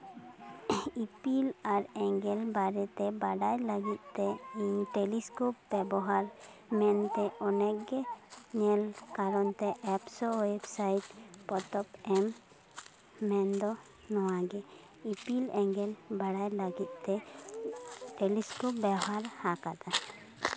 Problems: constant background noise, background conversations at intervals